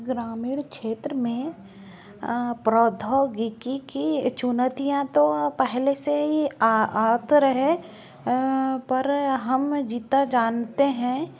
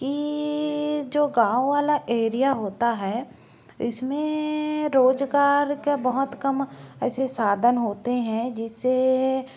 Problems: low volume